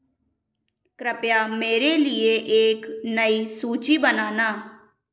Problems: background sounds at intervals, echo